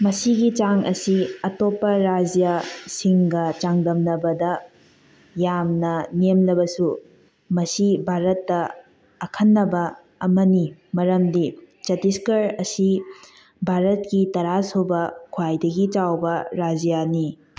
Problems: none marked